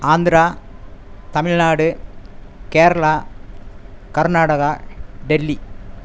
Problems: constant background noise